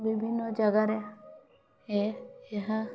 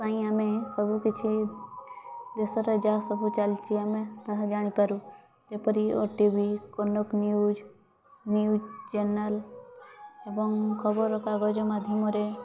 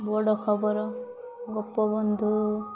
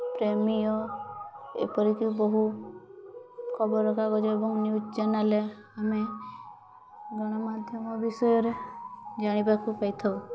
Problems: constant background noise